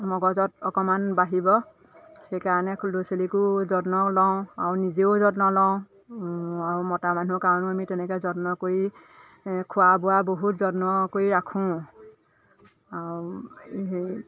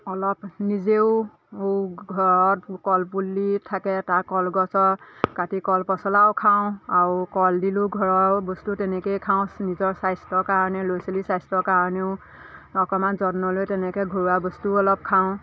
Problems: constant background noise, background conversations at intervals